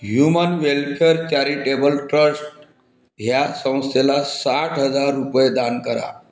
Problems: constant background noise